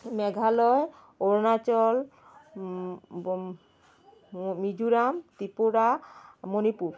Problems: constant background noise